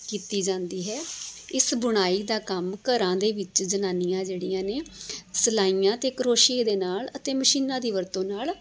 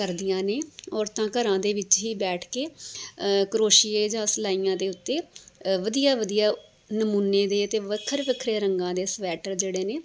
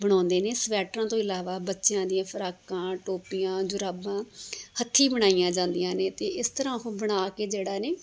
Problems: none marked